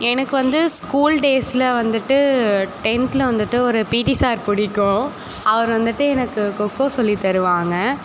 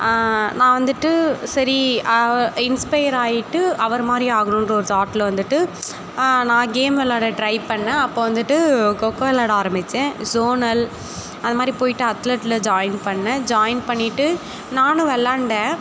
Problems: constant background noise